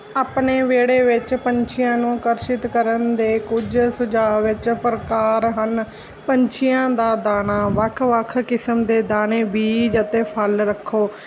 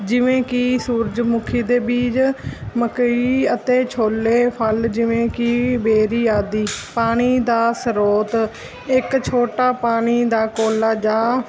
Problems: constant background noise